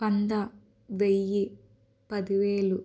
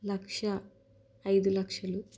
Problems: constant background noise